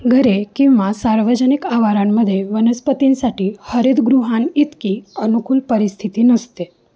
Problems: background sounds at intervals